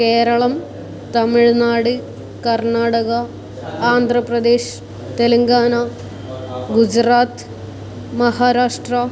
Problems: background sounds at intervals